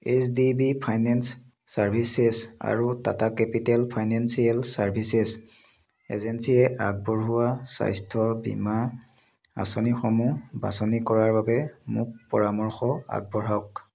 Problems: none marked